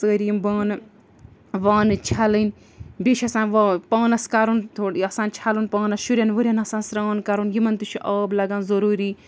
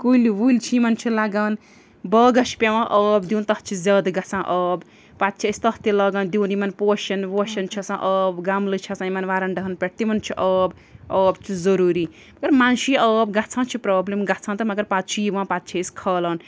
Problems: background sounds at intervals